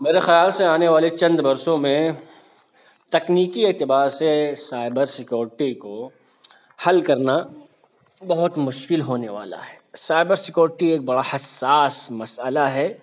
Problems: none marked